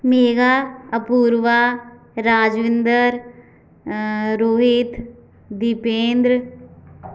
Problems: background sounds at intervals